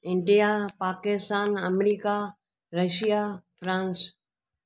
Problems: none marked